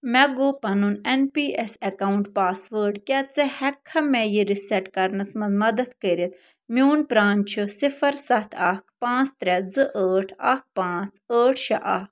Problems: none marked